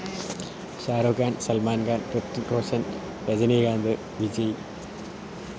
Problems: constant background noise, low volume